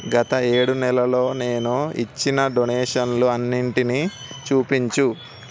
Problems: constant background noise